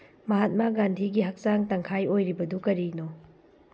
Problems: low volume